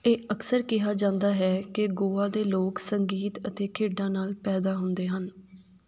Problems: none marked